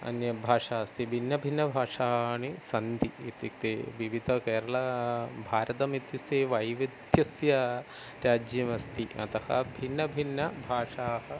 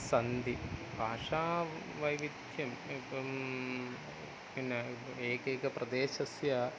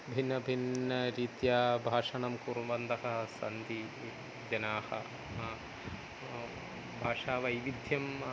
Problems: none marked